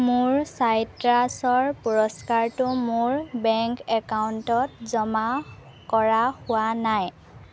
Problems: constant background noise, background conversations at intervals